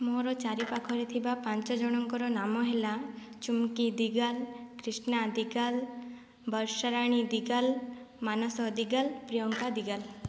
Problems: low volume